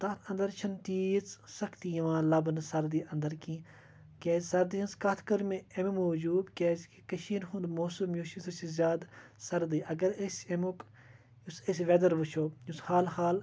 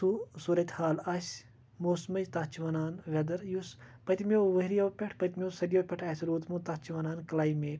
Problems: constant background noise